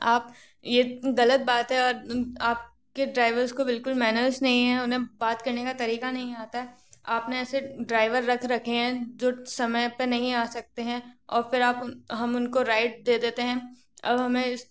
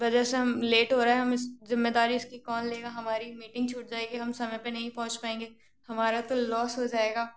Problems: none marked